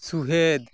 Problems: none marked